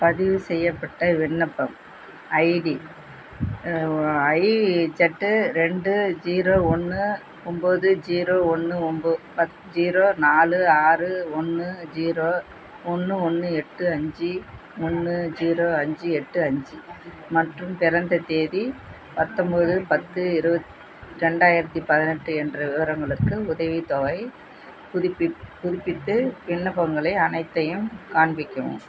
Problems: constant background noise